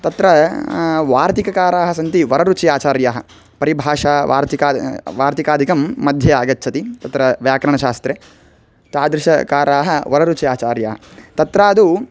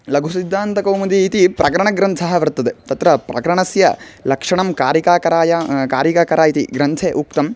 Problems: constant background noise